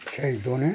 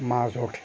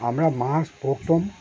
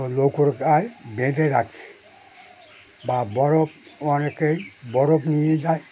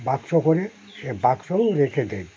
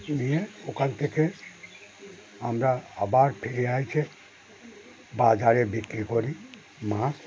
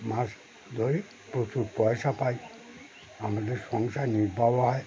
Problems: none marked